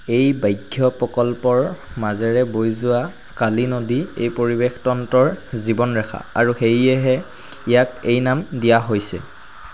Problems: constant background noise